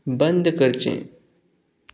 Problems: background sounds at intervals